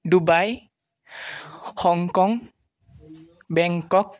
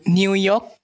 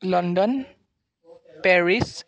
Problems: none marked